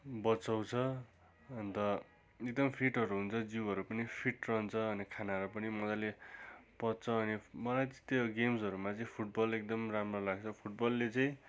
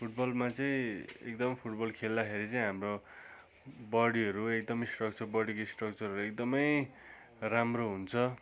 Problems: constant background noise